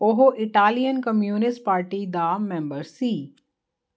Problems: constant background noise